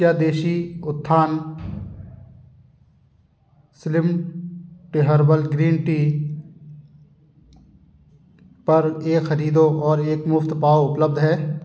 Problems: background sounds at intervals